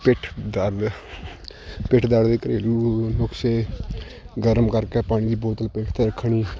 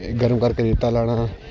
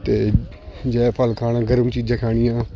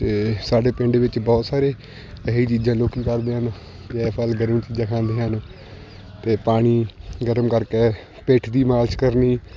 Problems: constant background noise